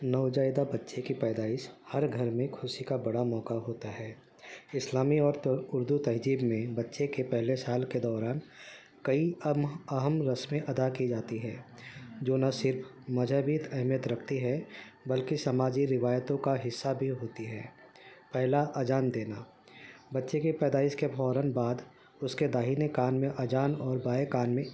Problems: constant background noise